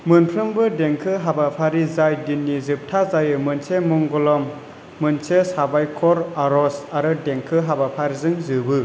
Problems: none marked